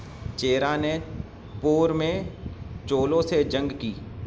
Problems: constant background noise, low volume